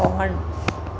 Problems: constant background noise